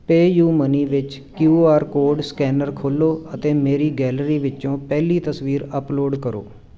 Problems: none marked